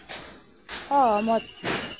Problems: constant background noise